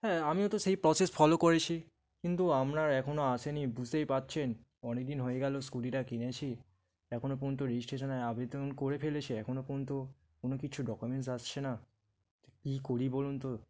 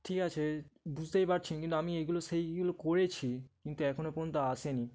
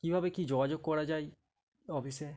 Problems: background sounds at intervals